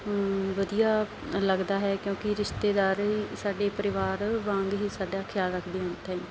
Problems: none marked